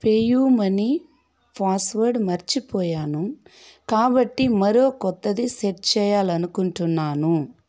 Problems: constant background noise